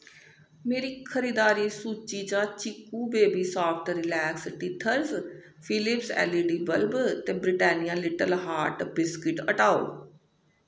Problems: echo